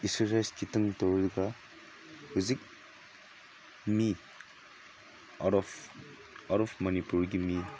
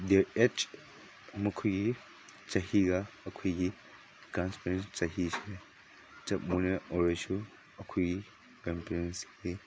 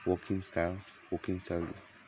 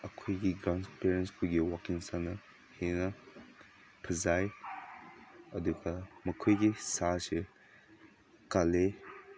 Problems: background sounds at intervals